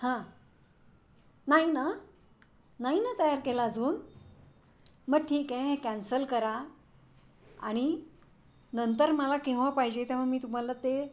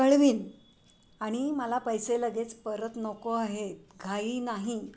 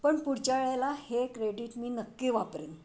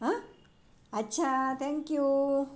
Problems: none marked